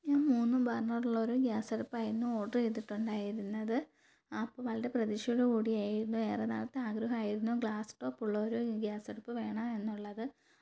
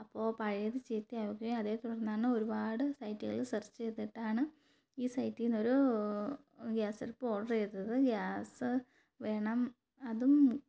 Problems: none marked